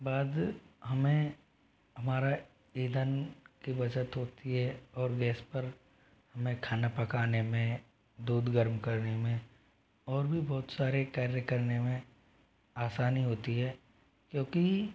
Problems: constant background noise